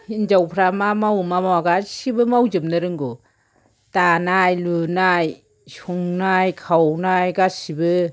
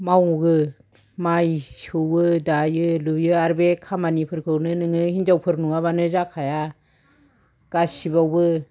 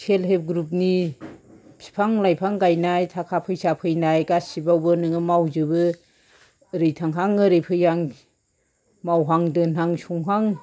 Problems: background sounds at intervals